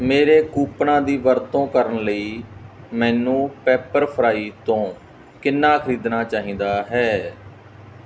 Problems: background sounds at intervals